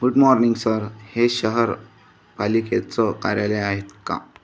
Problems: none marked